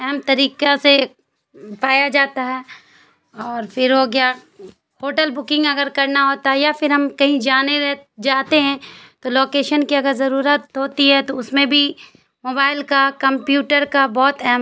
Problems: constant background noise